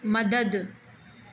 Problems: constant background noise